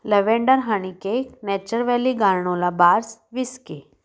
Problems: background sounds at intervals